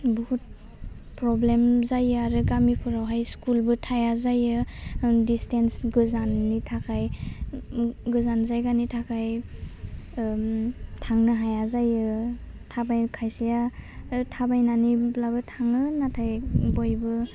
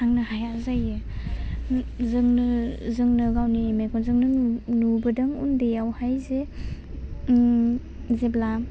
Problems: none marked